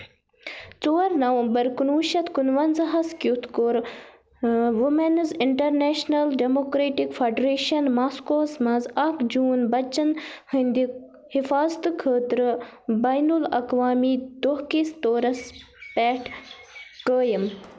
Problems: background sounds at intervals